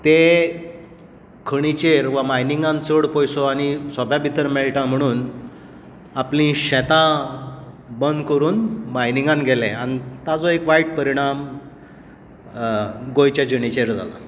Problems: background sounds at intervals